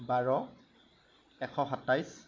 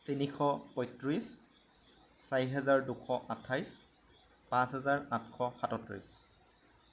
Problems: none marked